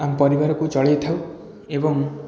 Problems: continuous background conversations